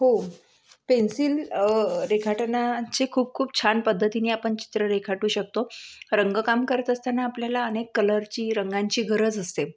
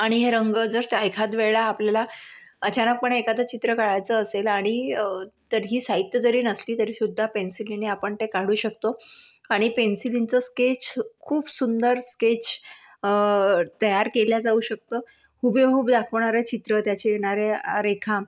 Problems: none marked